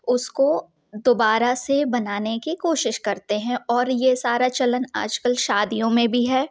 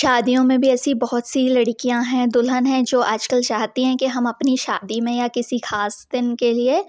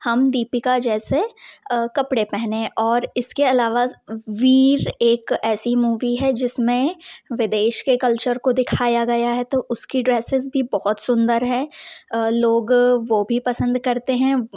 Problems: none marked